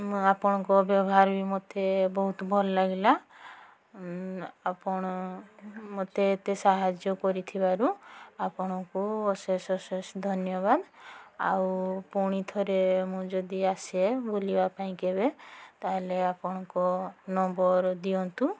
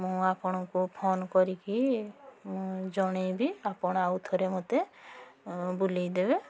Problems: background sounds at intervals, background conversations at intervals